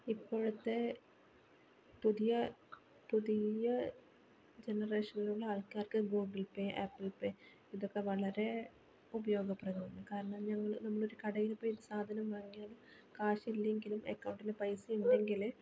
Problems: background sounds at intervals, low volume